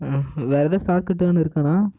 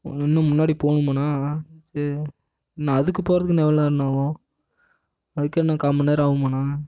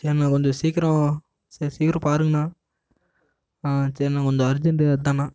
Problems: echo